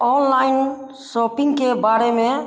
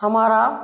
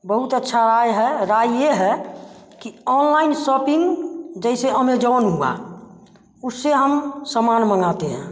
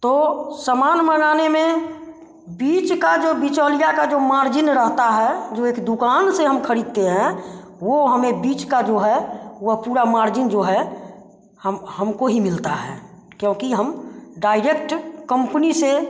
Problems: constant background noise